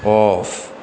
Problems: none marked